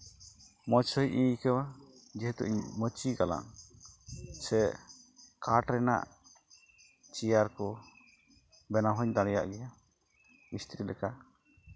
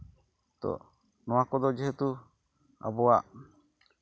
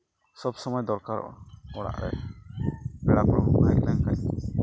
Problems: constant background noise